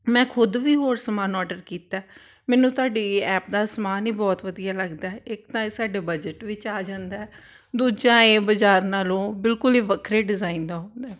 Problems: none marked